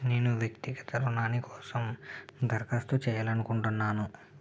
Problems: low volume